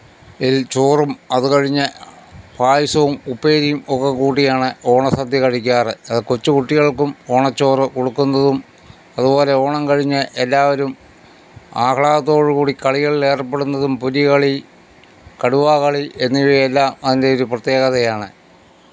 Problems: none marked